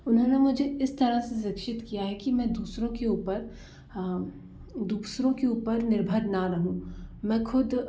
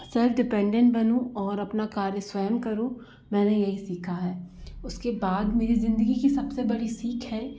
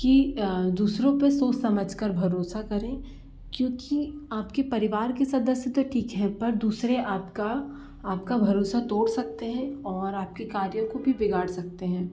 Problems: background sounds at intervals